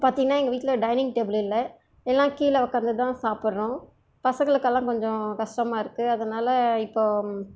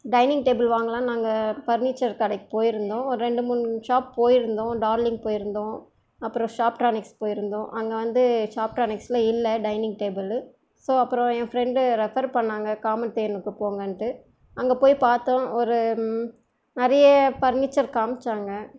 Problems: none marked